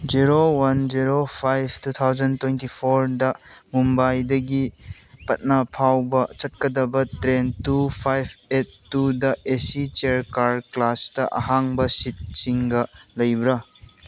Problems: background sounds at intervals